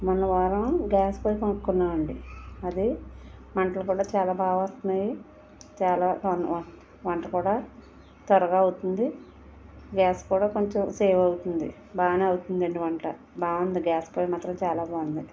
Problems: background conversations at intervals